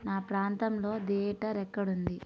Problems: none marked